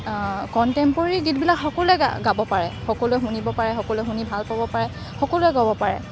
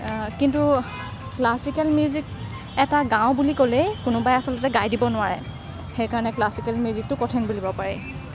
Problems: none marked